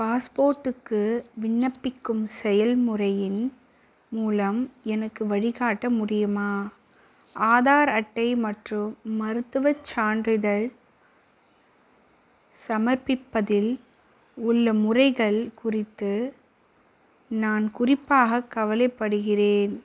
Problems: none marked